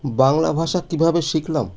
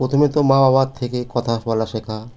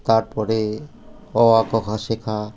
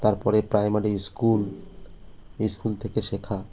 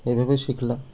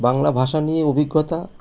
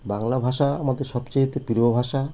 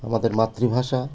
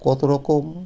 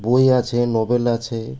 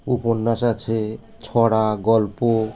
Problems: none marked